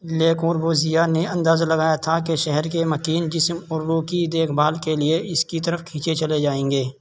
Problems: constant background noise